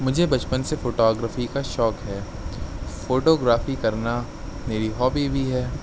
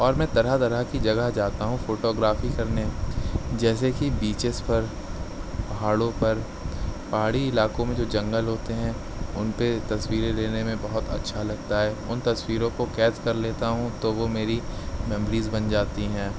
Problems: none marked